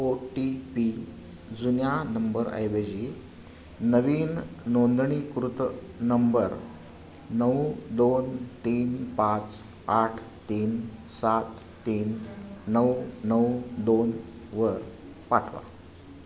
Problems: constant background noise, background conversations at intervals